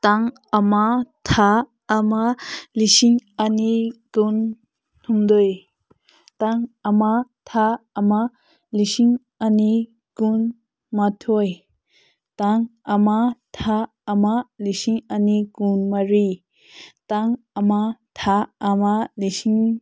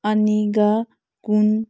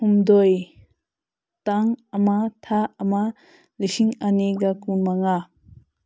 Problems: background sounds at intervals